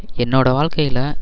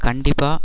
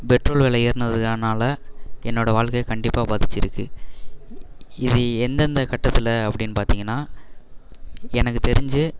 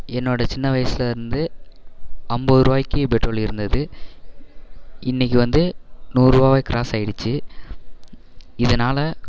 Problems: none marked